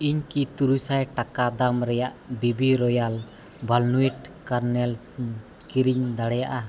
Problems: background sounds at intervals